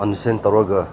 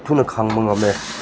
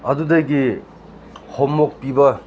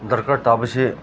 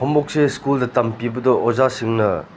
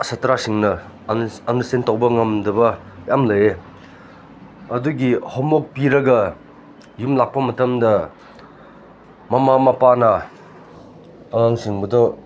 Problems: background sounds at intervals